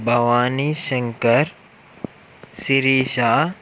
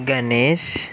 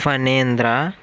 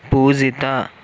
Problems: none marked